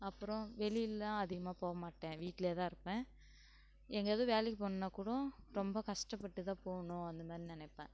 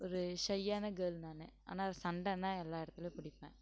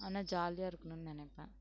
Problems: background sounds at intervals